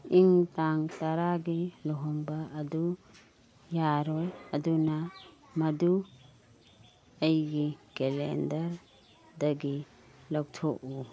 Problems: background sounds at intervals, background conversations at intervals